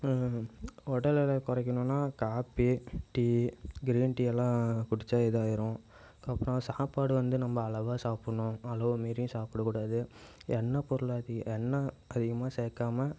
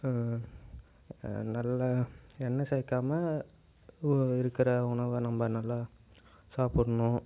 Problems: background sounds at intervals